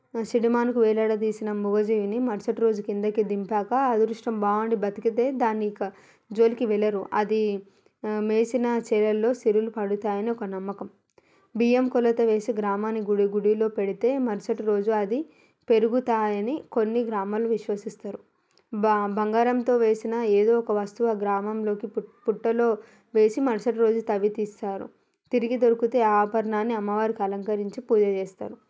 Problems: background sounds at intervals